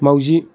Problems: background sounds at intervals